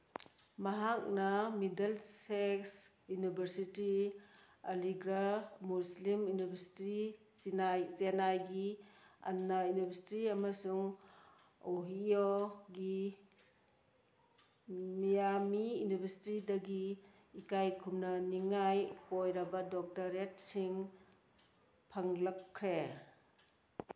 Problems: none marked